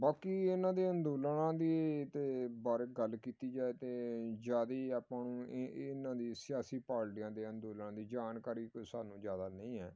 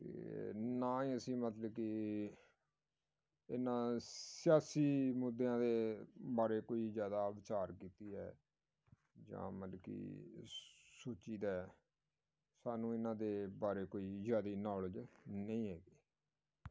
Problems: background sounds at intervals